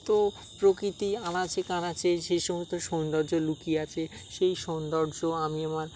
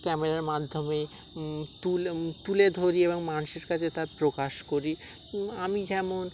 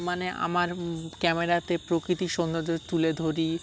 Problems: background sounds at intervals, background conversations at intervals